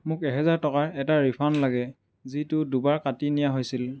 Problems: background sounds at intervals